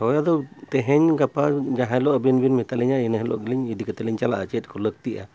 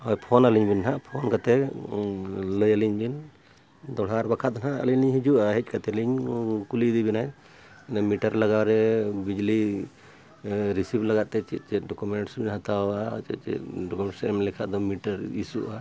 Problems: none marked